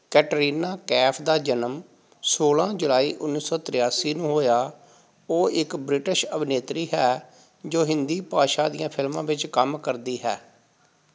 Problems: background sounds at intervals